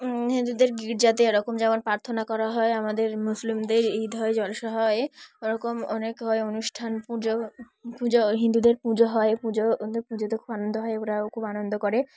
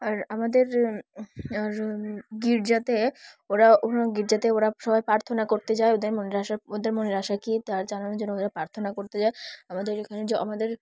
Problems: none marked